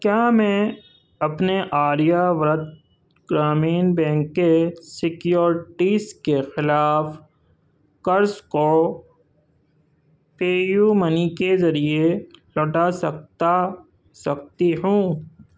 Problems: none marked